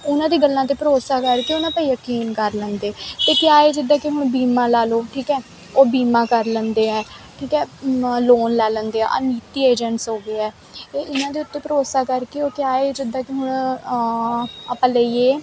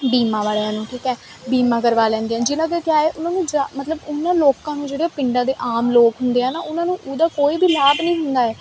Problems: constant background noise